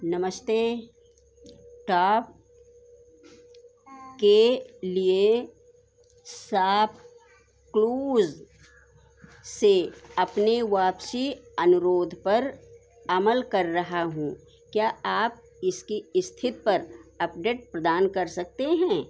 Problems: background sounds at intervals